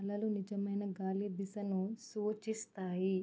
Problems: low volume